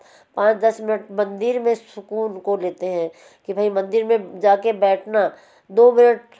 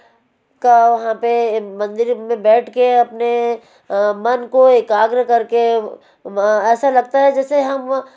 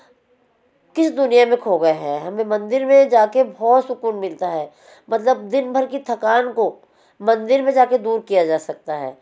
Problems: constant background noise